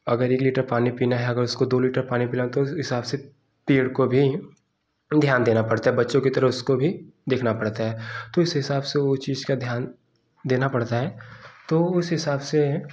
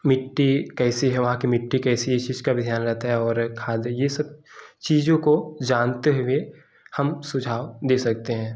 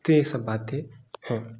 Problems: background sounds at intervals